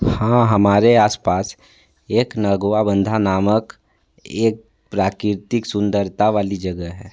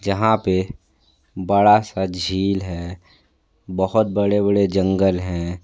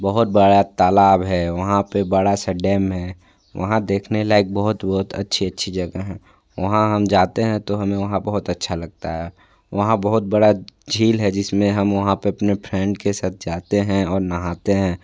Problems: constant background noise